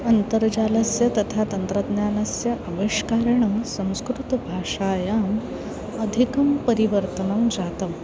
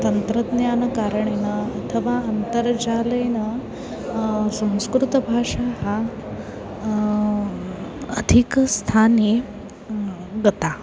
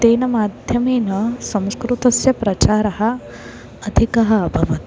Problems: constant background noise, continuous background conversations